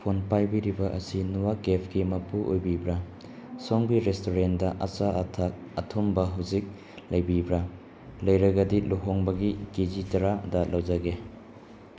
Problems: background sounds at intervals